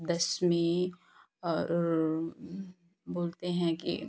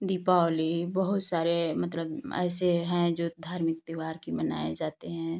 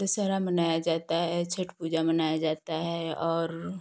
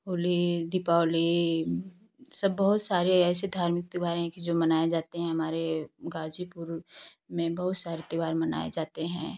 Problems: constant background noise